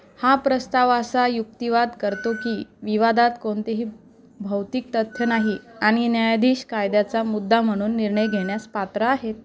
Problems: constant background noise, background conversations at intervals